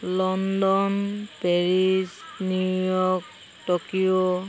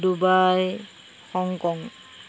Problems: none marked